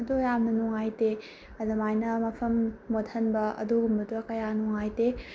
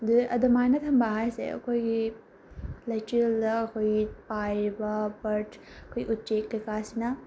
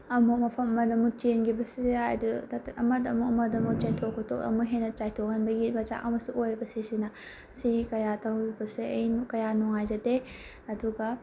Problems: none marked